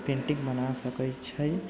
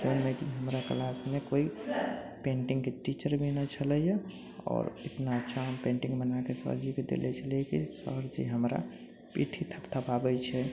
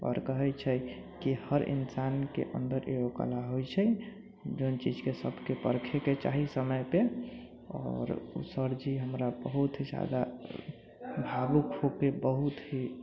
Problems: low volume